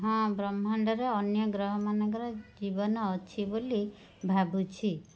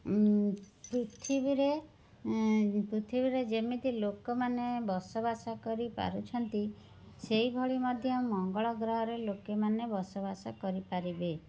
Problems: background sounds at intervals, background conversations at intervals, low volume